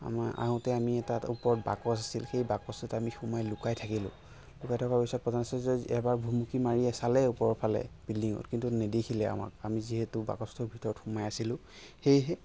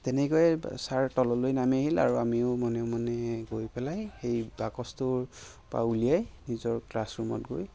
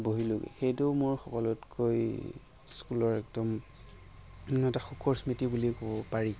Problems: background sounds at intervals